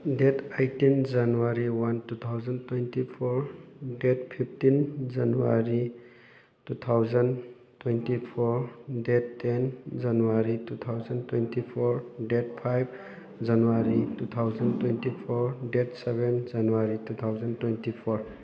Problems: background sounds at intervals, background conversations at intervals